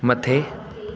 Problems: constant background noise, echo